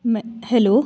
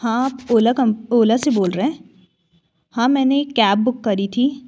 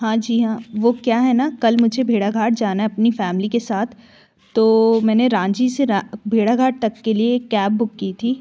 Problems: none marked